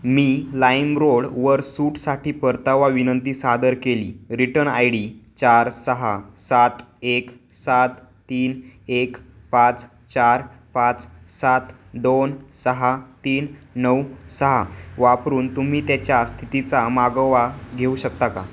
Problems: constant background noise